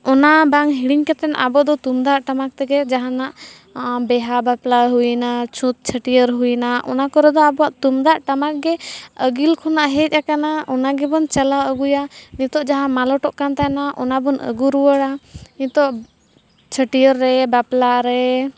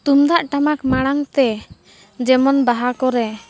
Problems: background sounds at intervals, background conversations at intervals